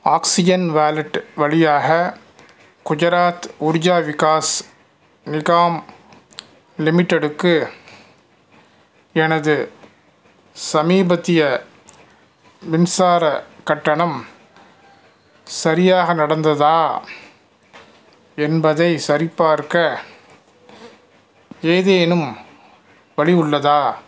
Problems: none marked